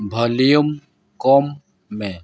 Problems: background sounds at intervals, background conversations at intervals